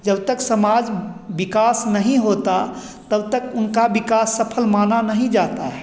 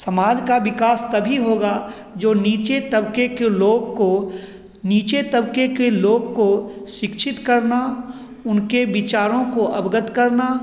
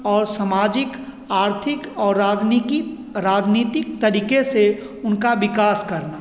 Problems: none marked